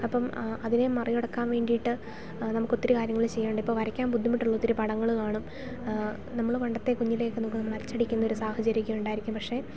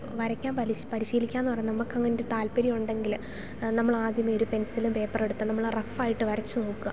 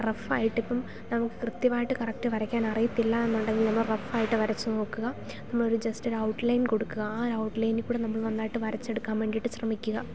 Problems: background sounds at intervals